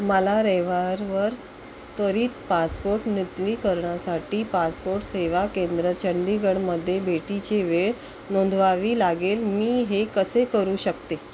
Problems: constant background noise